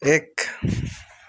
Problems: none marked